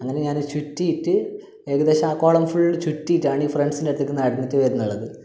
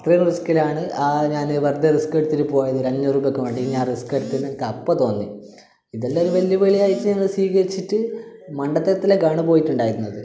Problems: none marked